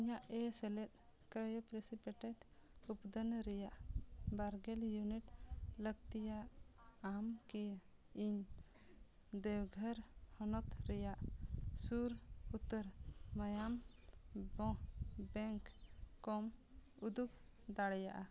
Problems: constant background noise